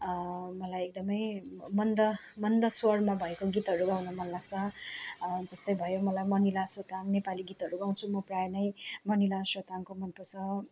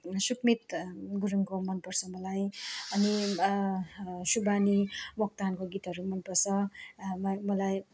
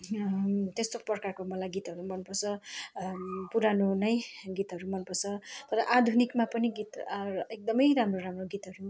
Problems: constant background noise